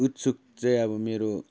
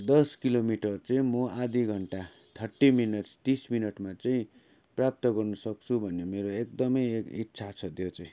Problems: constant background noise